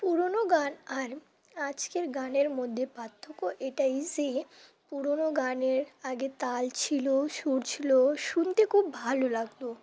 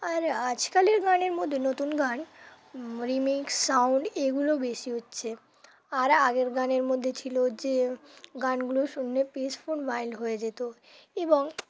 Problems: constant background noise